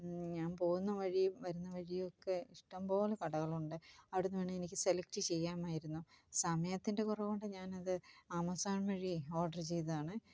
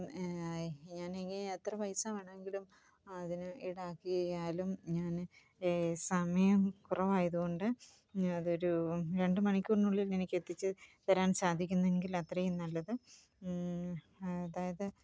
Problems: low volume